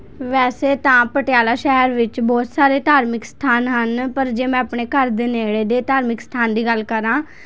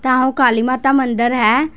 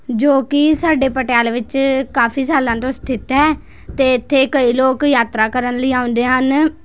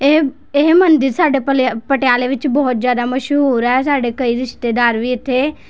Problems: constant background noise, background conversations at intervals